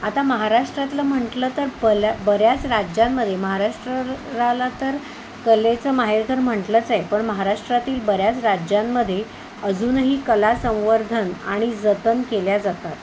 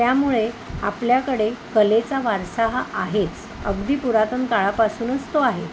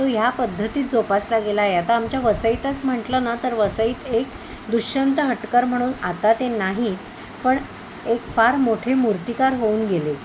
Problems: none marked